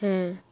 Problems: constant background noise